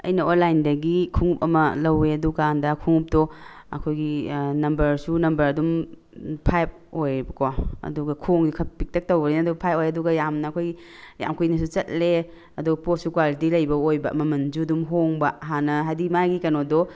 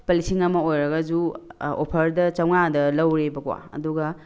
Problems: background sounds at intervals